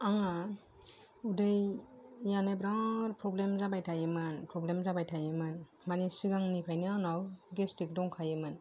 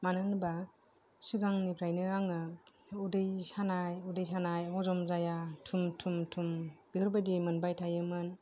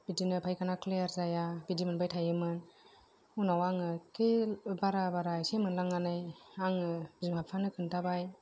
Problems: none marked